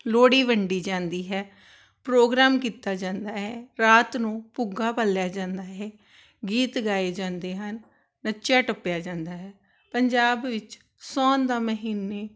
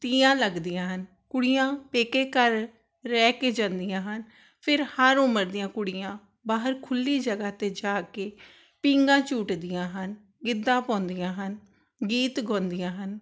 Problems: none marked